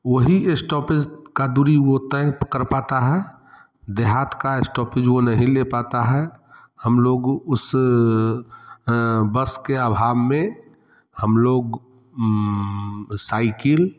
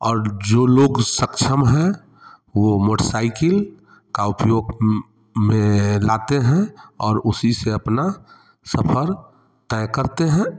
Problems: none marked